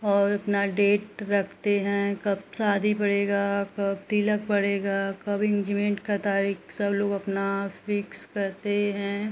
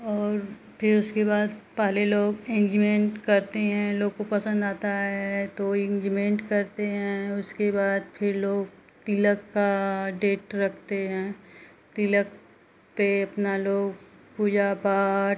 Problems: constant background noise